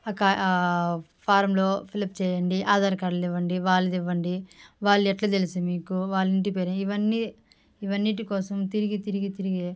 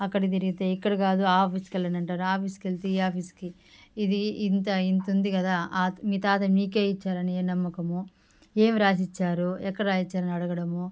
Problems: background sounds at intervals